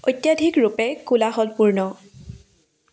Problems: constant background noise